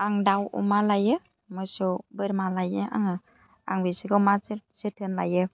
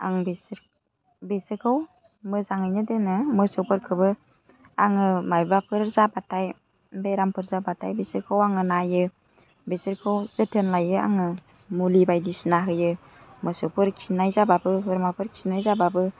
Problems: none marked